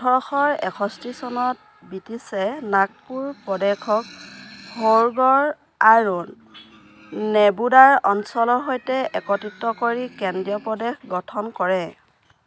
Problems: constant background noise